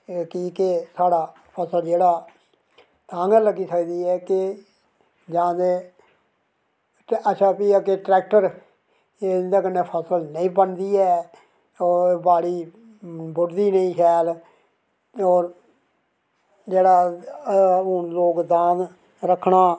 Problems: background sounds at intervals